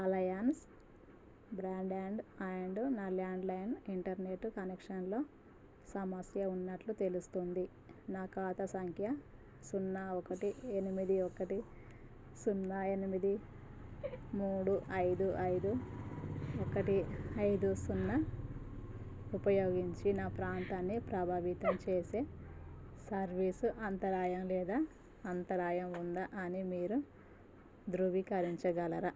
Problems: low volume